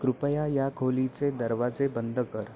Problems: none marked